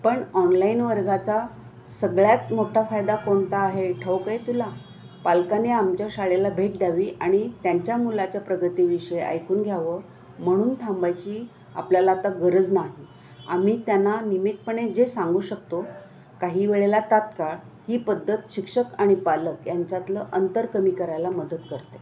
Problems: constant background noise, continuous background conversations